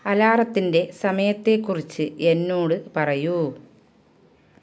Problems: none marked